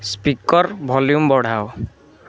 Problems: constant background noise, continuous background conversations